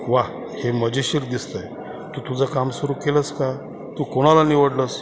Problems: constant background noise